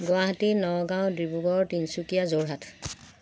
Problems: none marked